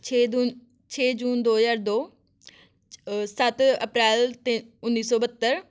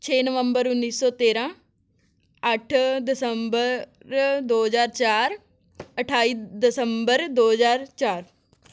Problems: none marked